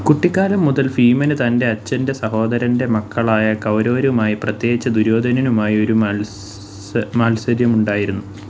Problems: low volume